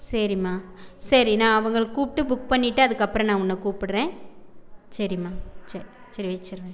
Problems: background conversations at intervals